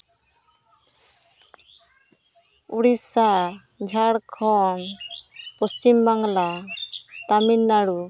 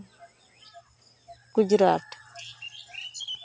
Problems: constant background noise, background conversations at intervals